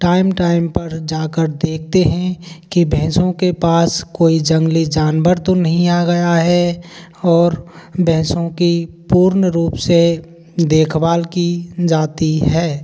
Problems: constant background noise